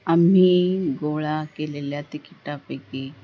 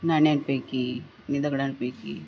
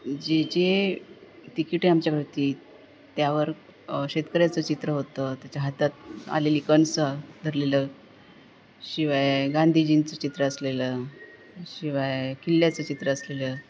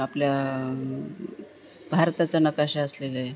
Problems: none marked